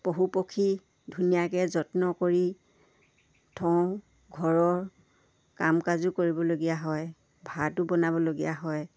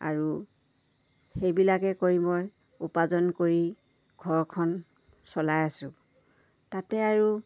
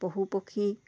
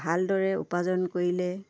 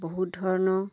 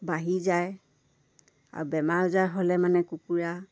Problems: none marked